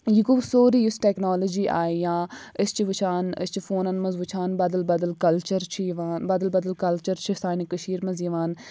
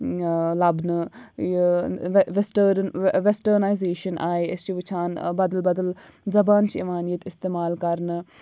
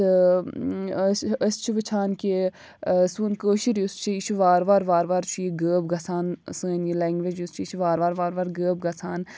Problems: low volume